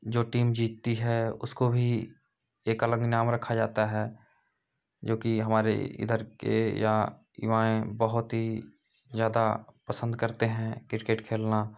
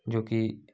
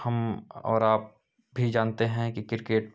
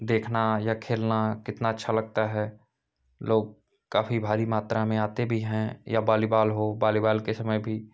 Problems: background sounds at intervals